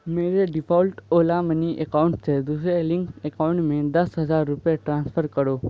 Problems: constant background noise